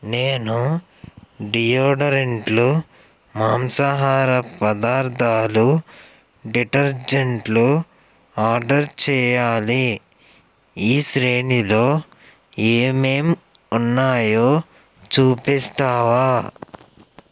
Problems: background sounds at intervals